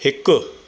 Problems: constant background noise, echo